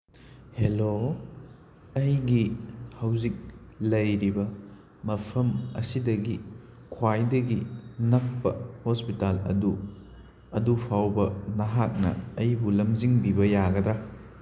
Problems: background sounds at intervals